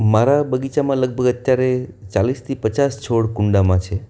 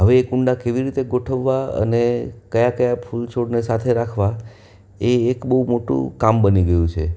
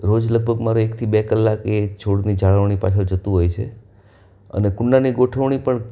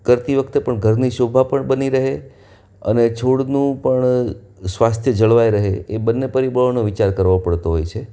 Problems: none marked